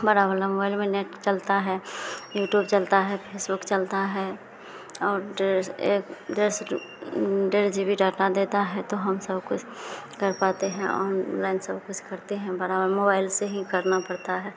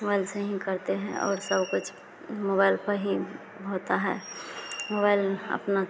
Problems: none marked